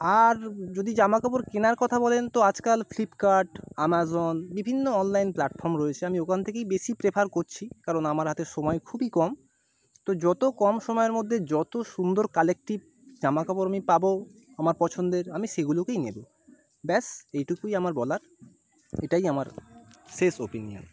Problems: none marked